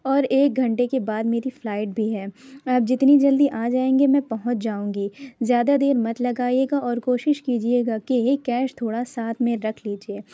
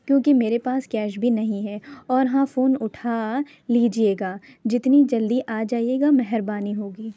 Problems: none marked